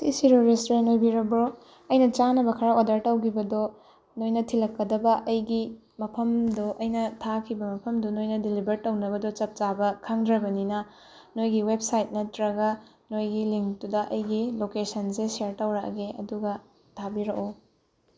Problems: background sounds at intervals